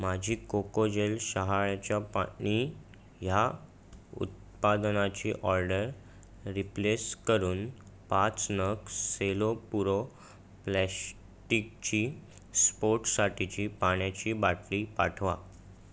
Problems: none marked